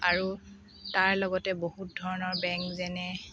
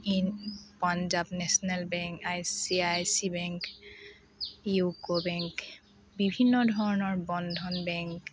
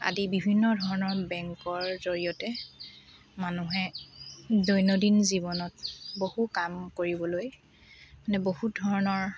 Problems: background sounds at intervals, background conversations at intervals, low volume